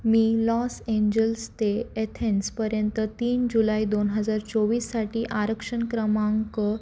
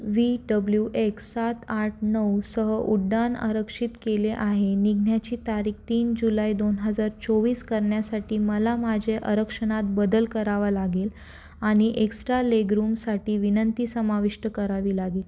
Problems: none marked